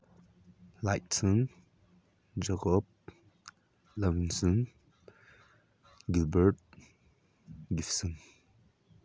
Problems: low volume